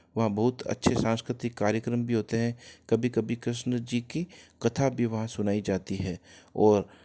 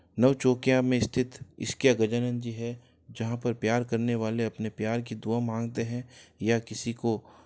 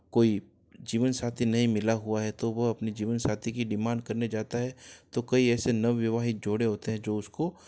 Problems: none marked